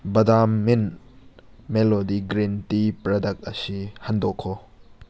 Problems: background sounds at intervals